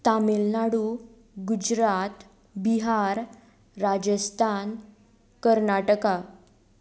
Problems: none marked